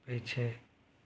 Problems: low volume